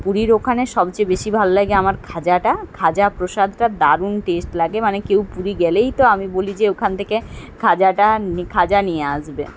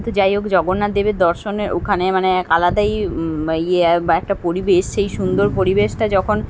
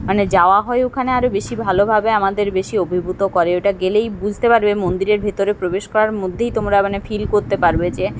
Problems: none marked